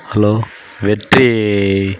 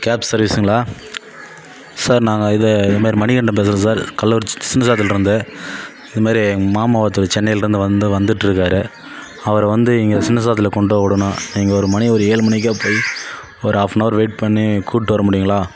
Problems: none marked